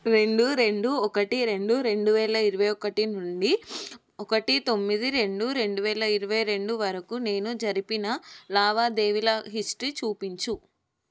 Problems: none marked